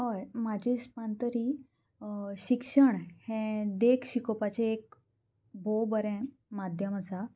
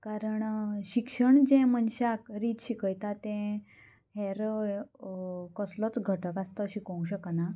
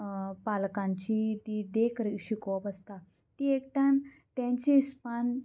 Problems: constant background noise